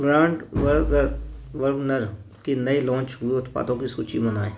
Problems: background sounds at intervals